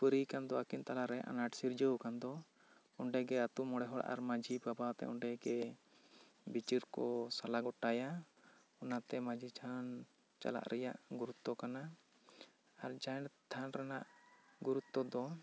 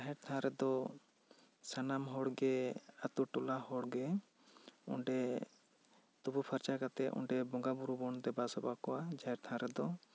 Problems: none marked